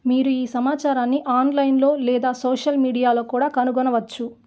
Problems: none marked